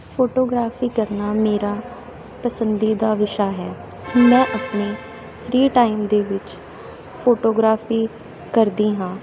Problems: none marked